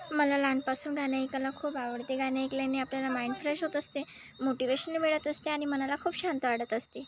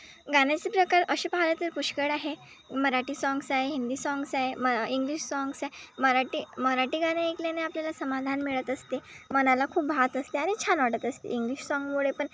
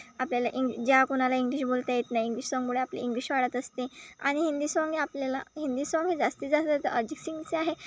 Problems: constant background noise, background conversations at intervals